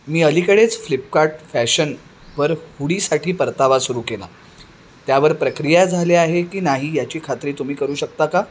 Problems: none marked